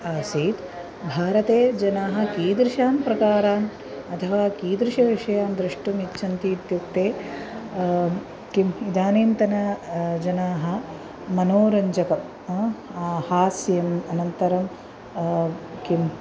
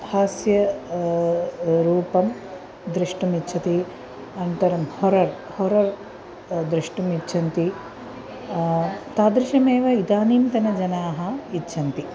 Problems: constant background noise, continuous background conversations